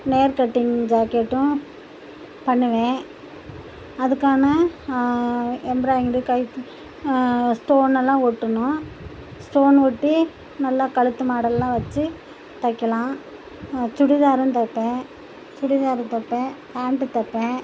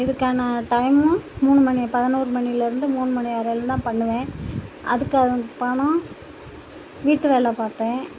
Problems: constant background noise